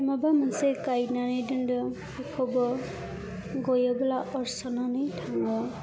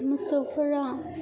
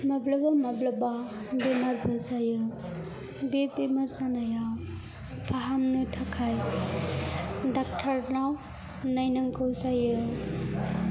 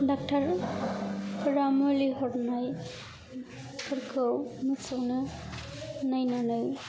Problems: background sounds at intervals, background conversations at intervals